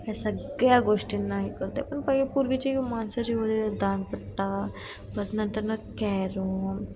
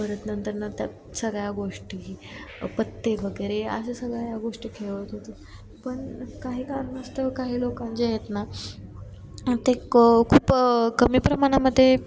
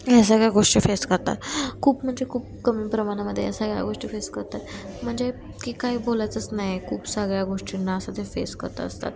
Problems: none marked